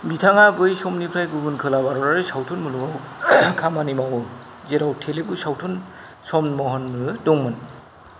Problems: constant background noise